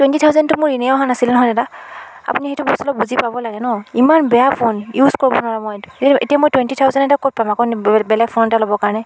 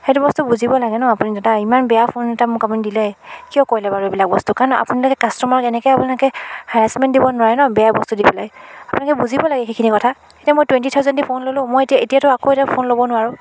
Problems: none marked